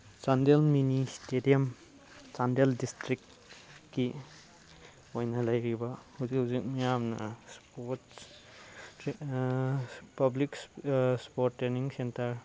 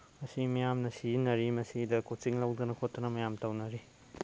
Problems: background sounds at intervals